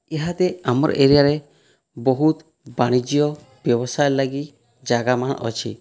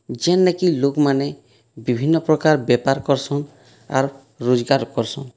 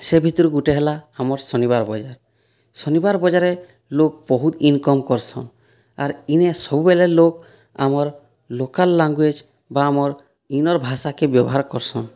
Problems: none marked